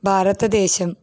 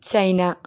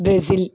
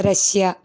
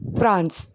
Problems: none marked